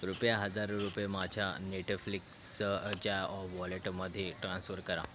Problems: none marked